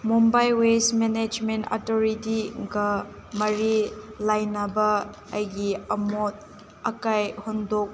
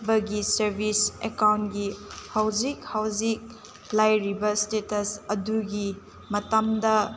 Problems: constant background noise